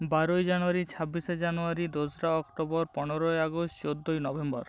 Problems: constant background noise